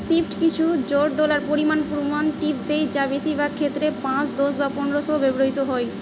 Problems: constant background noise, continuous background conversations